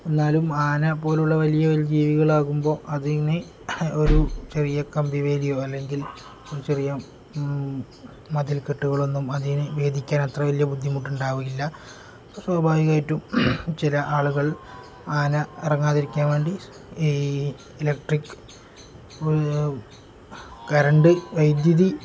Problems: background sounds at intervals